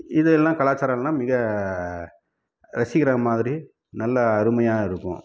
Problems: none marked